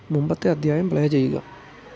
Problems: low volume